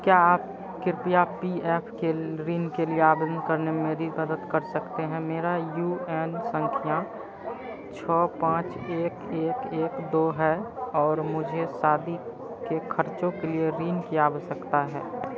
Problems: constant background noise